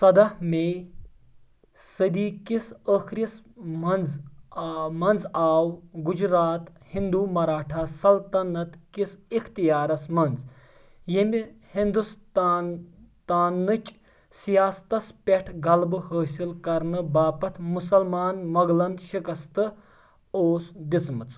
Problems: background sounds at intervals